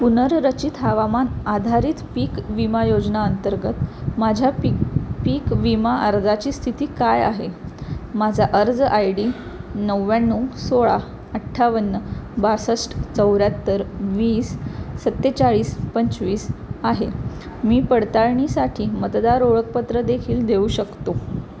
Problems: constant background noise